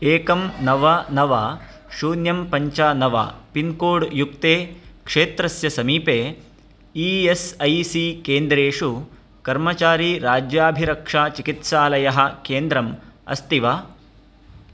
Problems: constant background noise